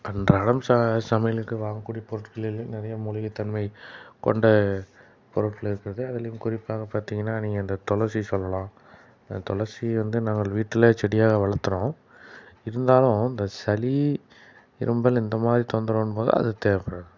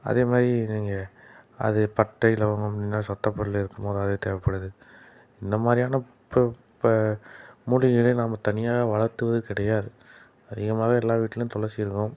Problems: background sounds at intervals